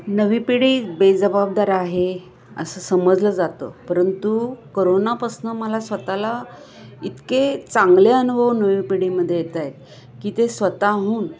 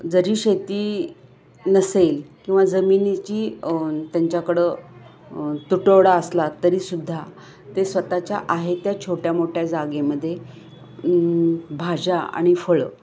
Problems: background sounds at intervals, background conversations at intervals